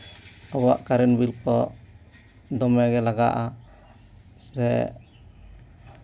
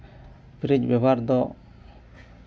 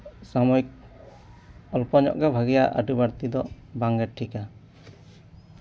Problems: background sounds at intervals